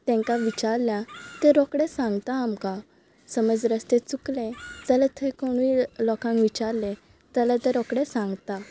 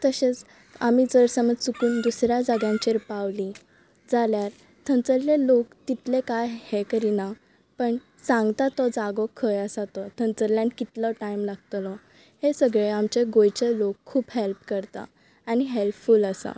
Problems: background sounds at intervals, background conversations at intervals